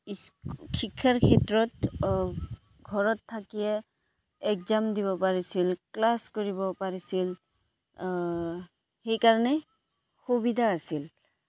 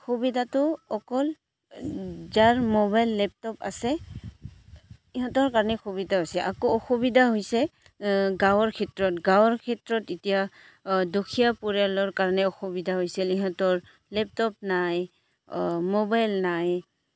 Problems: background sounds at intervals